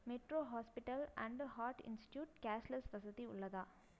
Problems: low volume